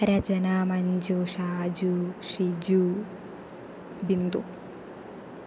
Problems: constant background noise